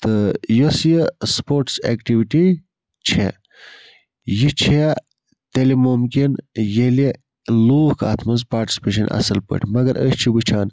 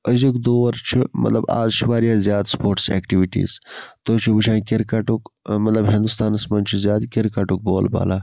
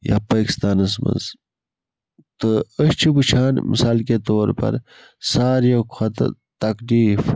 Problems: constant background noise